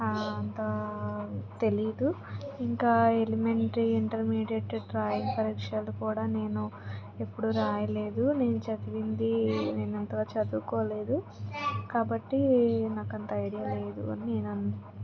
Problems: constant background noise, background conversations at intervals